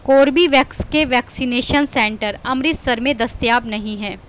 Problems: constant background noise